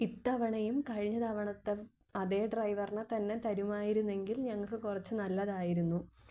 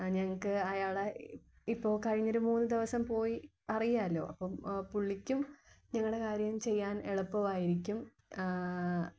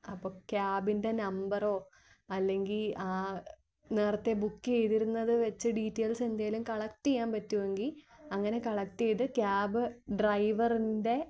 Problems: low volume